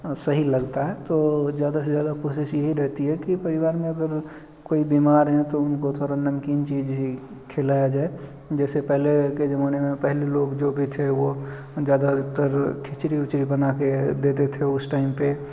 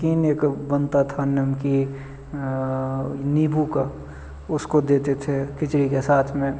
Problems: none marked